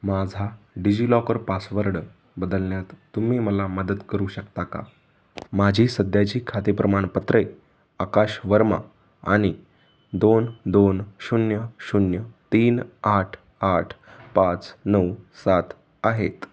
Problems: background sounds at intervals